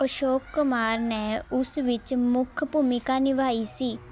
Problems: continuous background conversations